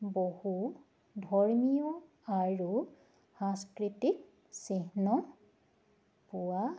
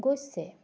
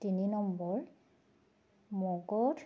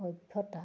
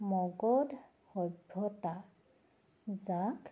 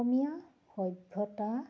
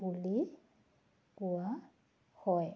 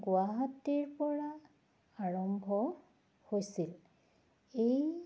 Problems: background sounds at intervals